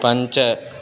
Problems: none marked